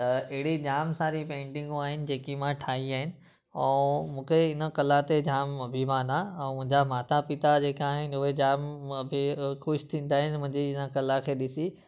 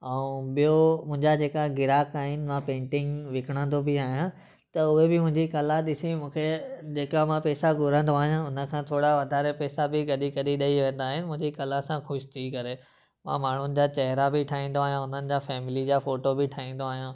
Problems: constant background noise